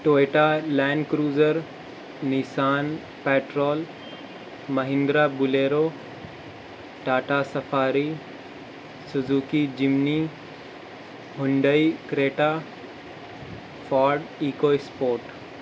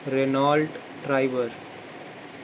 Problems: constant background noise